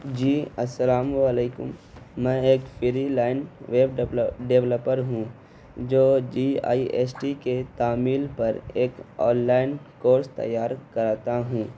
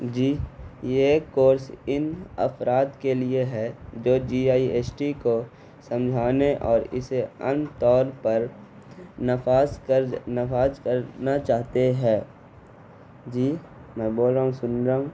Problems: constant background noise